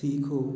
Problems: none marked